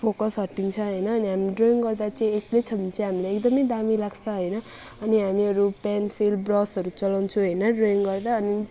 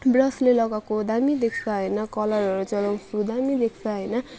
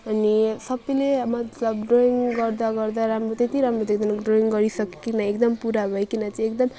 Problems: background sounds at intervals